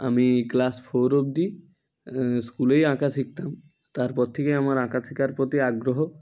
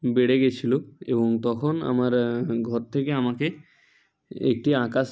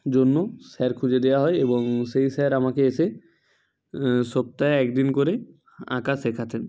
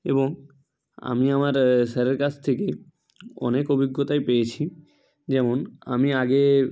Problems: constant background noise